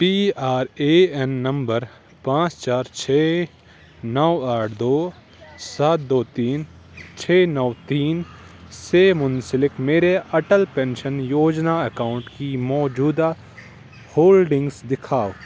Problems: constant background noise